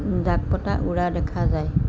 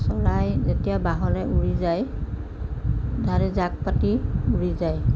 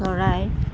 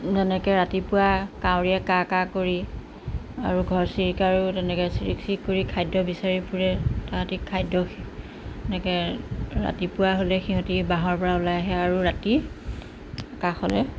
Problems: background sounds at intervals